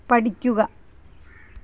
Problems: background sounds at intervals